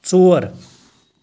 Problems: background sounds at intervals